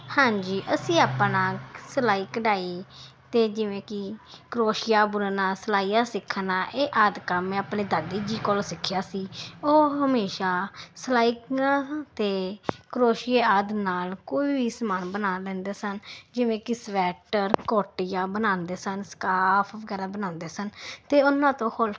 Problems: none marked